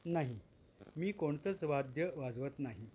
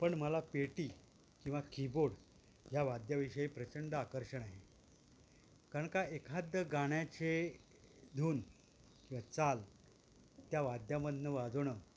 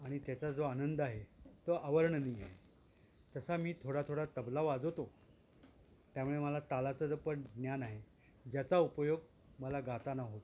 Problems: constant background noise